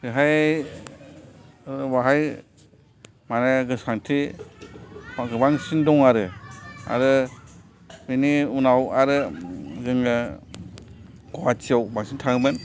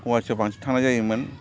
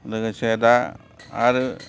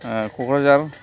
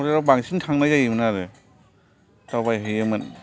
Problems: constant background noise, continuous background conversations